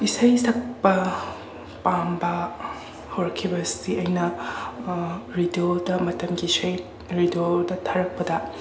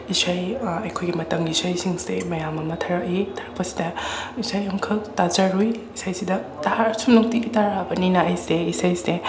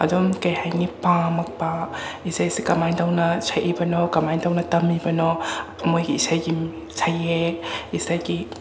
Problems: constant background noise, continuous background conversations